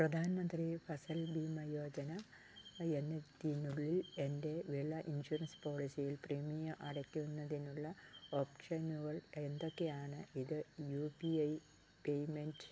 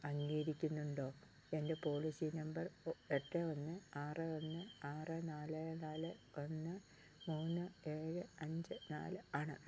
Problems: none marked